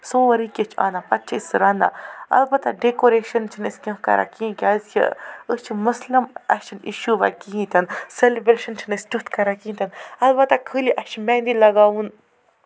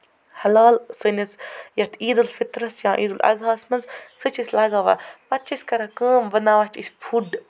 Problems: constant background noise, background conversations at intervals